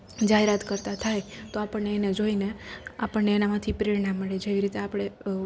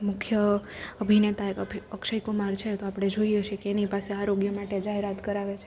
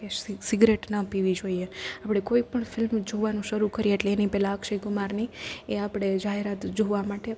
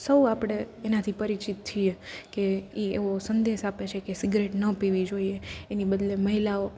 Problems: constant background noise